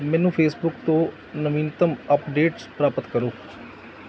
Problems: background sounds at intervals, background conversations at intervals